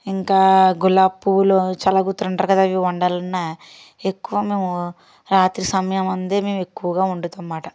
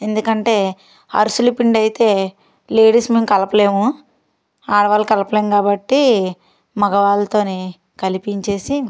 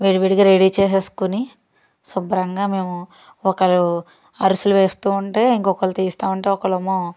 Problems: none marked